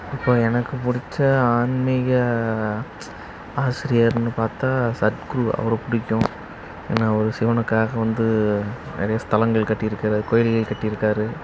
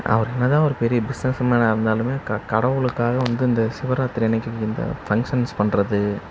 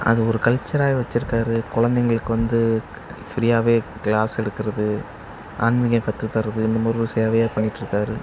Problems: background sounds at intervals